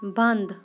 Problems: constant background noise